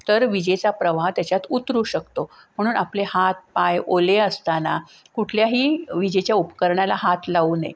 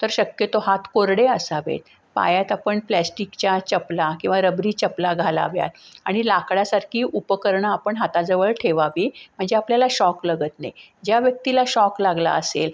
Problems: background sounds at intervals